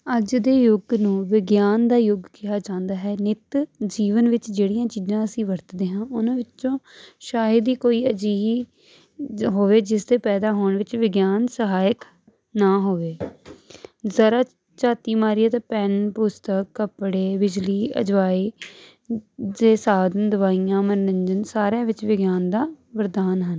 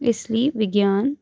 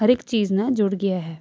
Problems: constant background noise